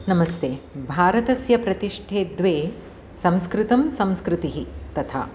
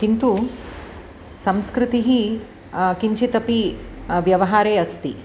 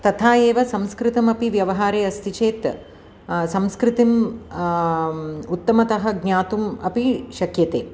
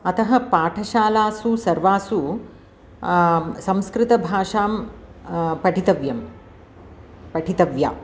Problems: none marked